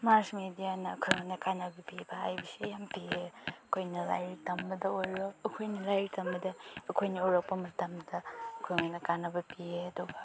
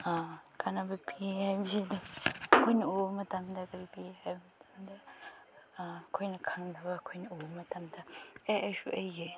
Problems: background sounds at intervals, background conversations at intervals